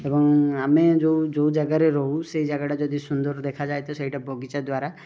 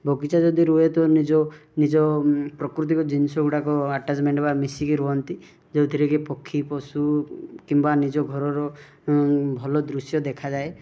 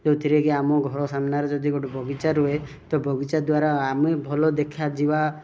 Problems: none marked